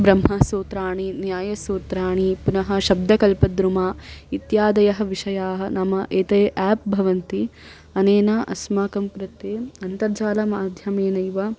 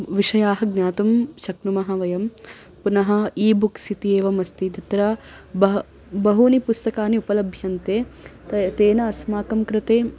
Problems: constant background noise